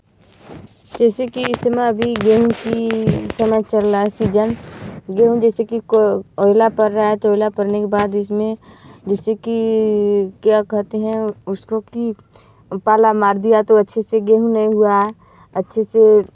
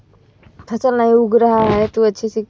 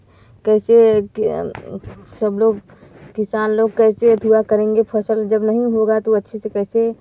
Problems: none marked